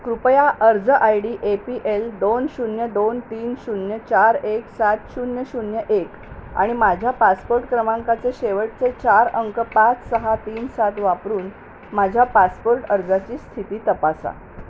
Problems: constant background noise